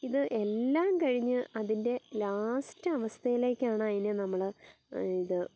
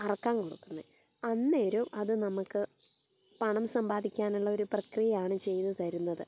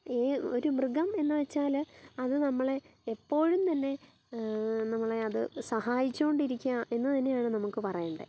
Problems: background sounds at intervals, low volume